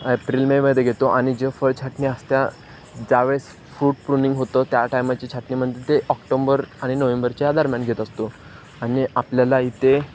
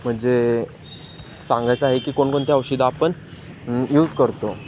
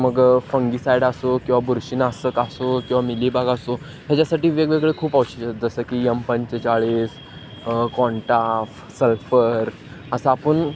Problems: constant background noise